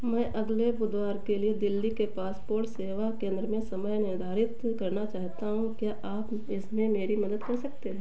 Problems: none marked